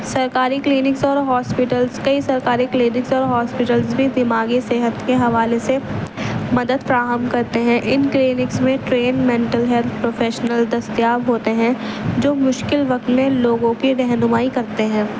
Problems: constant background noise, background conversations at intervals